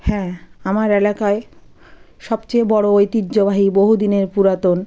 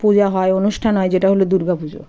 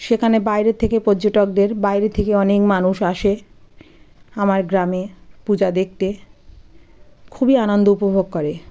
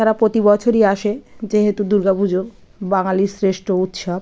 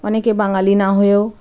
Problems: none marked